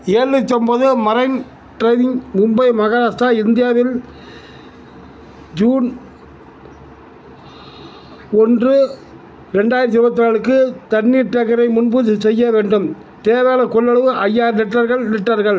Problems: background sounds at intervals